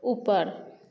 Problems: low volume